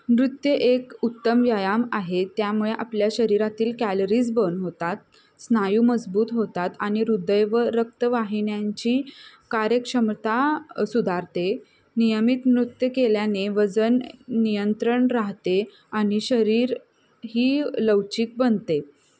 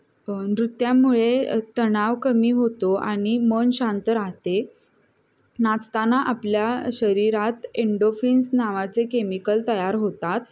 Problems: constant background noise, background conversations at intervals